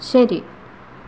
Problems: constant background noise